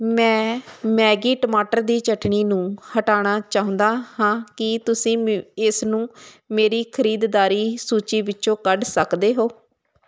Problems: constant background noise